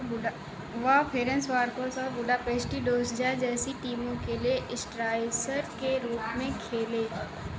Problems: constant background noise, echo